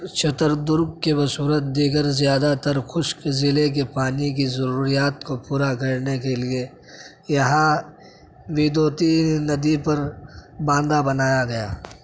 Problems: none marked